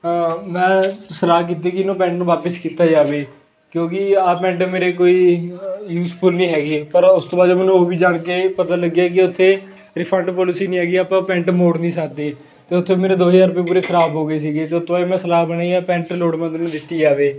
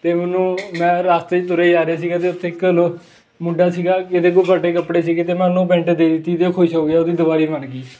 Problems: constant background noise